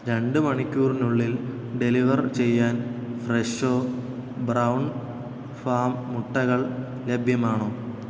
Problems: constant background noise